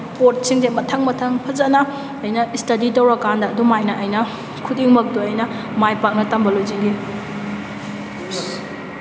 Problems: background sounds at intervals